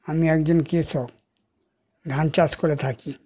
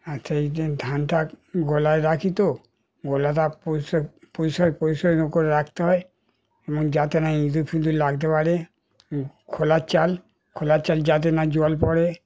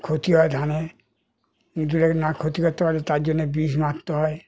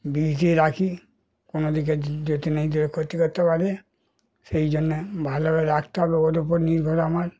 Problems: none marked